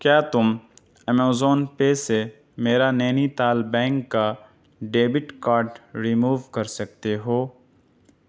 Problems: none marked